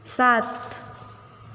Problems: none marked